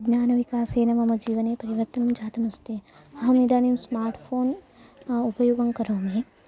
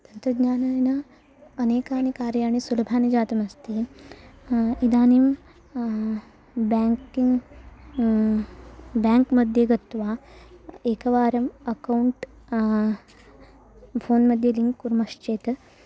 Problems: constant background noise, continuous background conversations